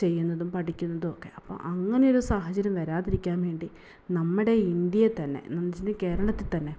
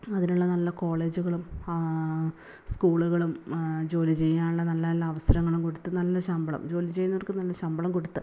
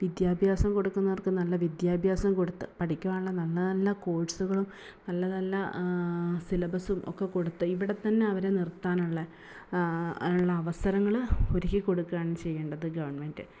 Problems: background sounds at intervals